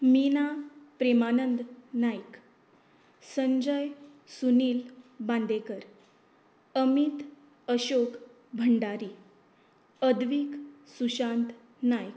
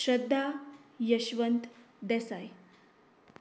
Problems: constant background noise